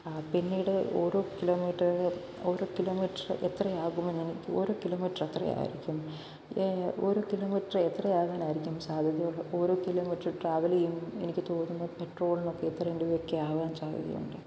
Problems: constant background noise, low volume